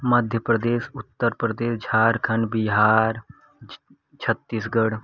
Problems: constant background noise